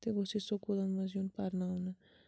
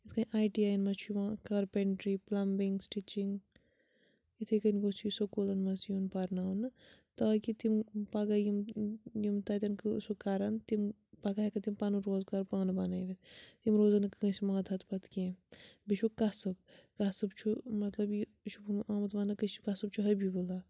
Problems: none marked